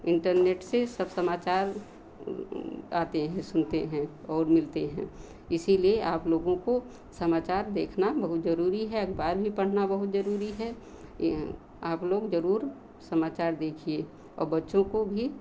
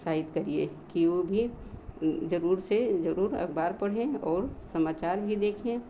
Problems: none marked